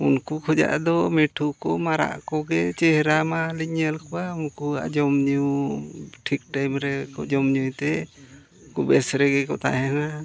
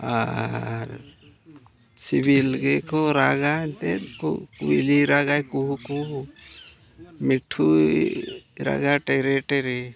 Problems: constant background noise, continuous background conversations